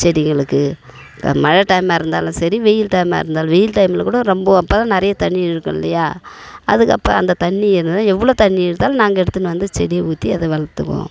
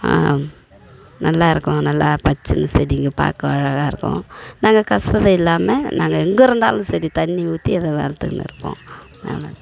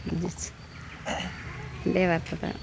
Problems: background sounds at intervals